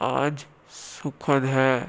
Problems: constant background noise